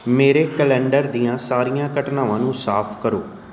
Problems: background sounds at intervals